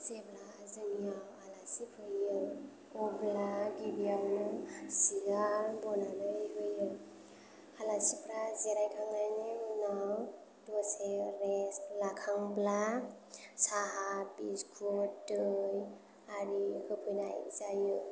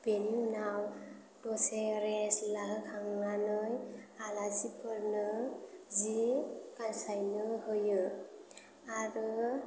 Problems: background sounds at intervals, low volume